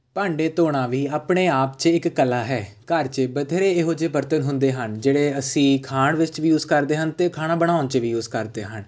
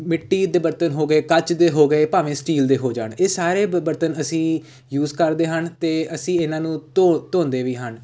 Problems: background sounds at intervals